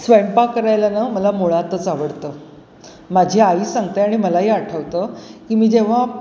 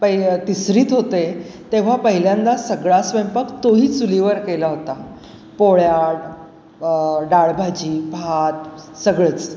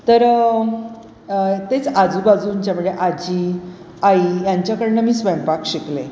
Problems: constant background noise